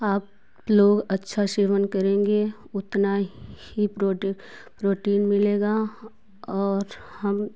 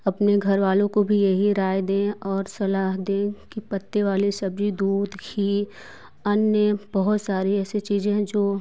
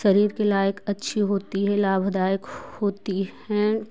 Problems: none marked